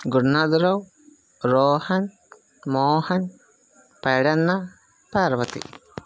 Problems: constant background noise